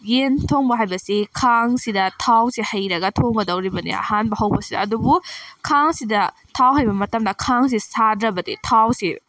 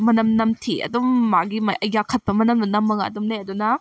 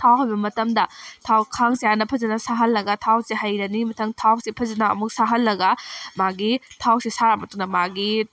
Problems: background sounds at intervals